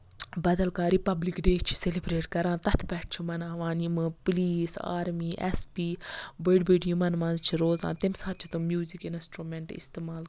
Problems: none marked